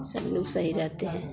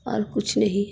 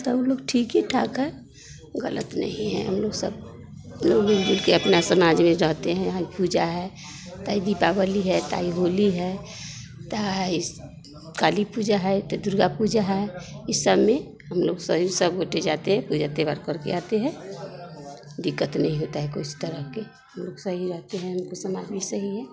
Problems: none marked